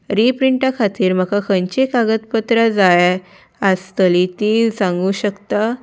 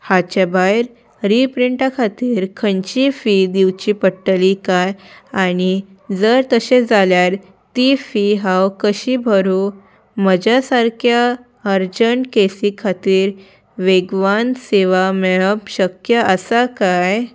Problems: background sounds at intervals